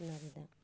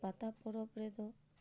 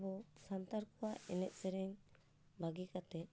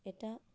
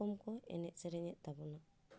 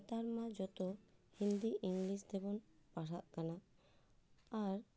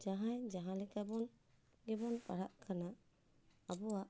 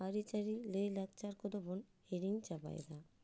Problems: low volume